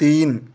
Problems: constant background noise